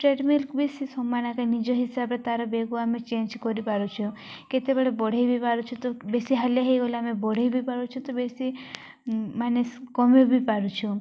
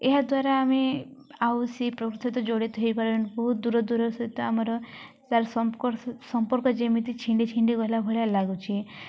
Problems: none marked